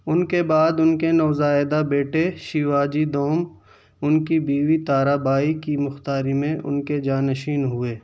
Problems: constant background noise